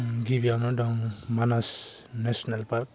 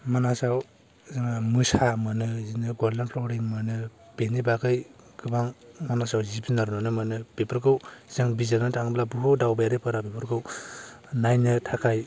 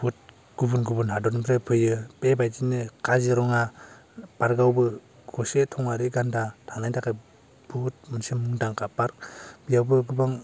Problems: low volume